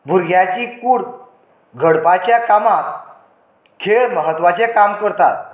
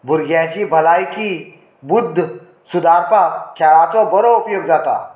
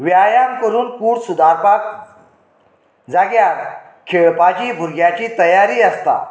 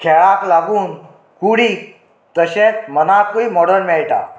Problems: none marked